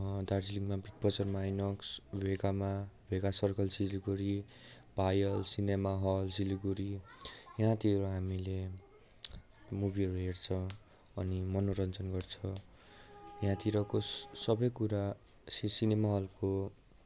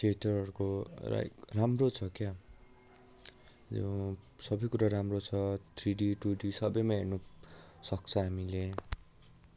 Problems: continuous background conversations